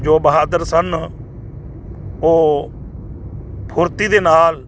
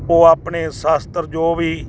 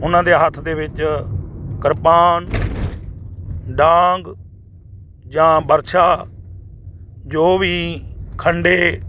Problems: constant background noise